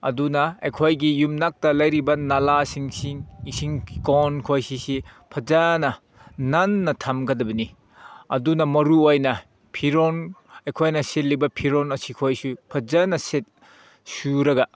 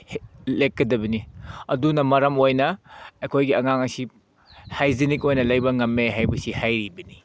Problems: background sounds at intervals